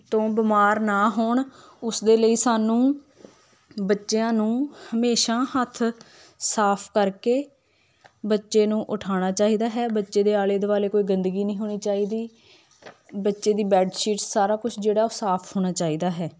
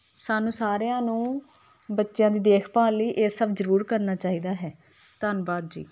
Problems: none marked